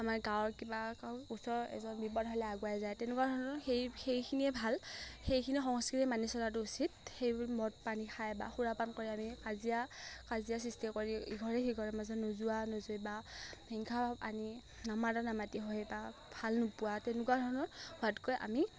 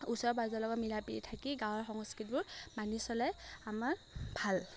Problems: none marked